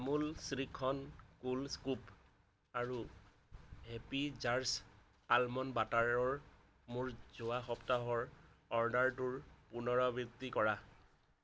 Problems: background sounds at intervals